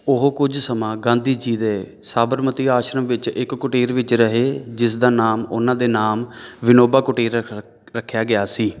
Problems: background sounds at intervals, background conversations at intervals